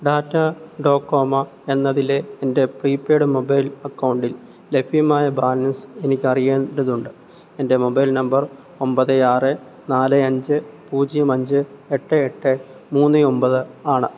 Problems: low volume